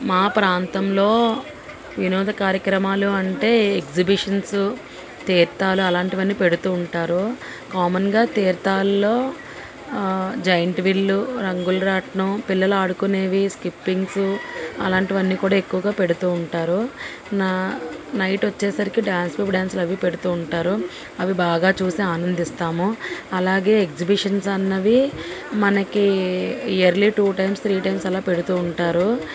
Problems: constant background noise